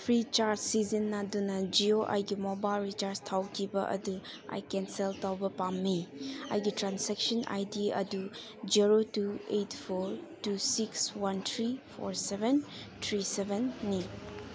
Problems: constant background noise